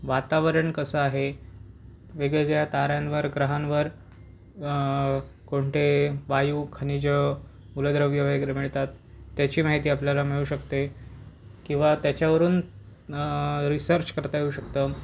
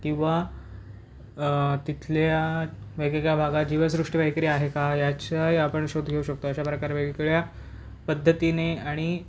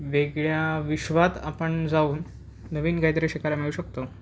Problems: none marked